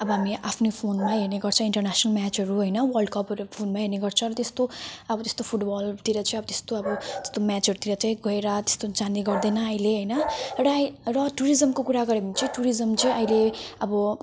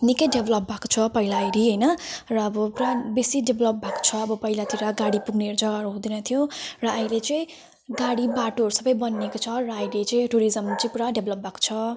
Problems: none marked